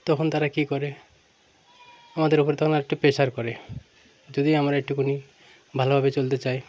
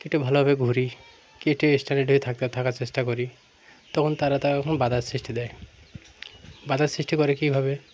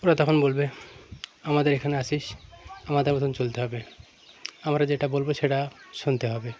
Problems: constant background noise, background conversations at intervals